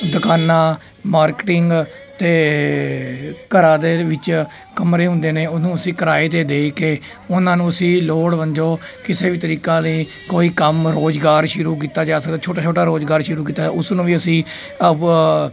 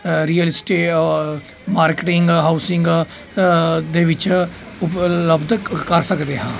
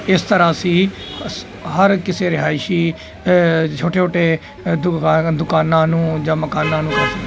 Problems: none marked